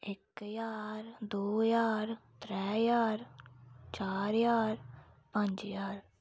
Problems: low volume